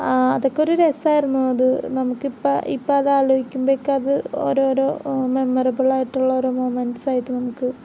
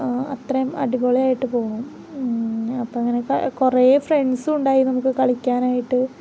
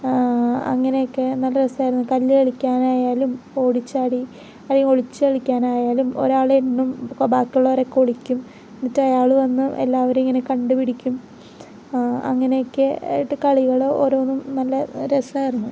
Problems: none marked